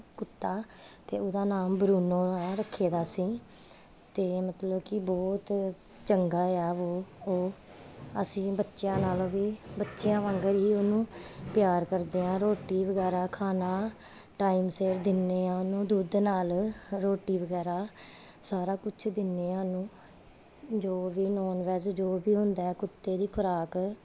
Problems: constant background noise